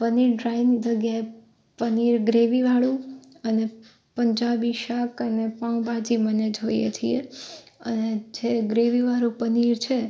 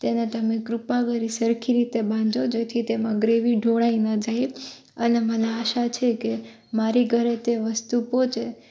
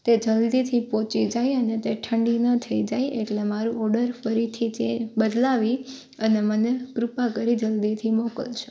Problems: constant background noise